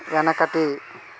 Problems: background sounds at intervals